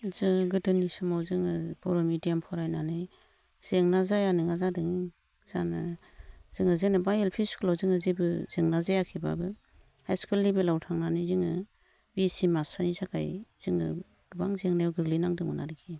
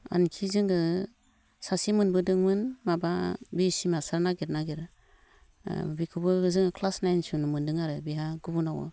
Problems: none marked